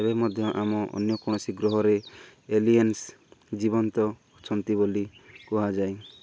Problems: none marked